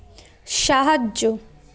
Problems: constant background noise, background conversations at intervals